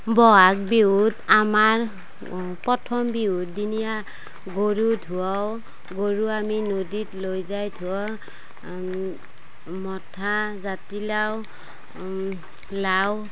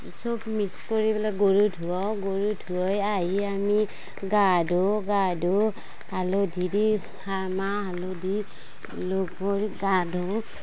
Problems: constant background noise, background conversations at intervals